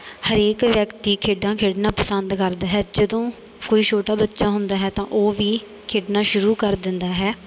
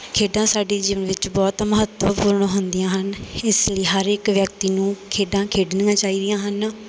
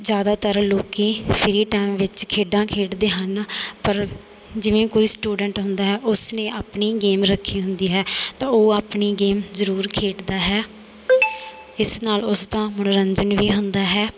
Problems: background sounds at intervals